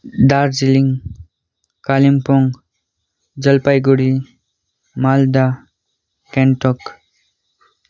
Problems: background sounds at intervals